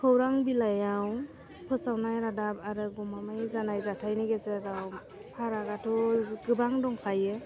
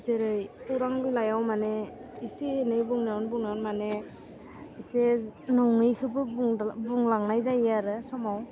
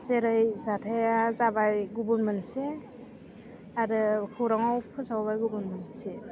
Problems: constant background noise